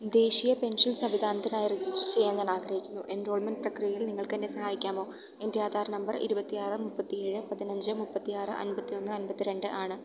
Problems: none marked